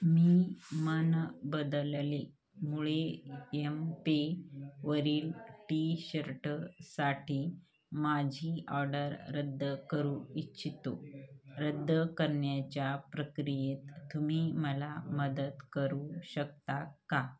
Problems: constant background noise